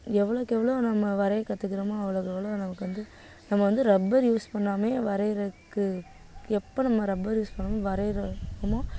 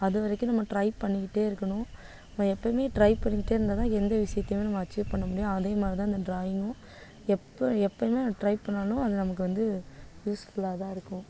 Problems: none marked